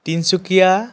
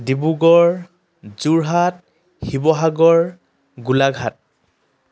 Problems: none marked